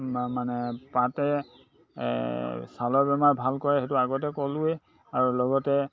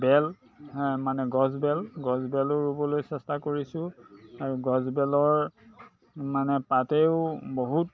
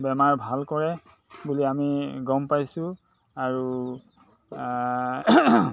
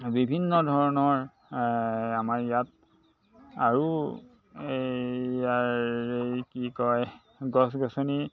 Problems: constant background noise, background conversations at intervals